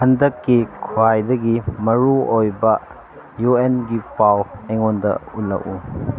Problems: background sounds at intervals